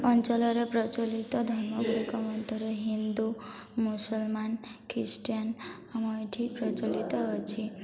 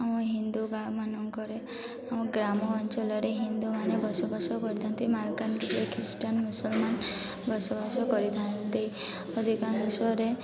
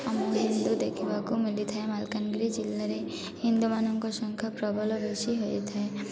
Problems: constant background noise, continuous background conversations